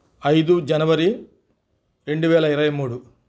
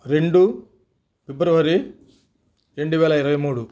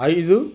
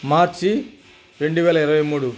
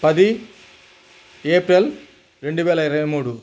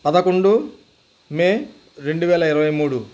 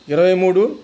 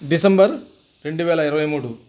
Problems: background sounds at intervals